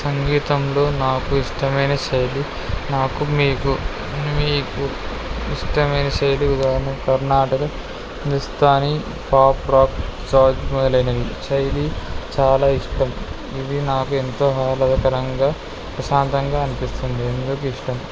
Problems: none marked